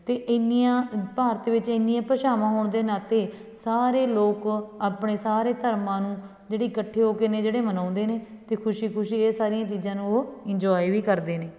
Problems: background sounds at intervals, background conversations at intervals